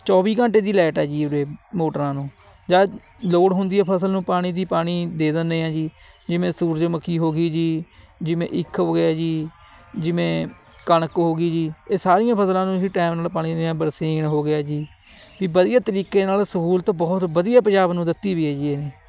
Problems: none marked